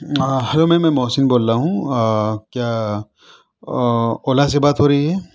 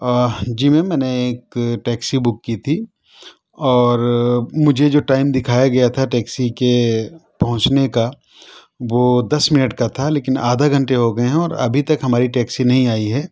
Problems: none marked